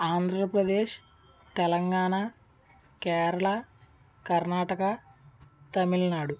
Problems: none marked